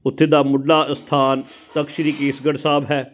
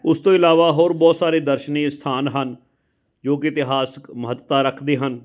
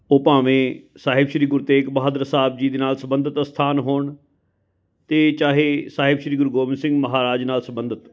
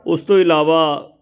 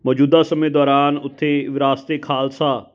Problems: constant background noise, continuous background conversations